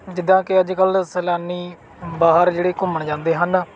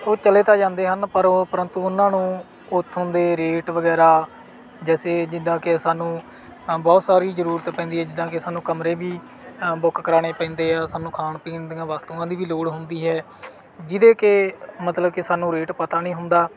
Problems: background sounds at intervals